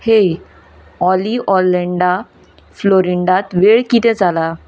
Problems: none marked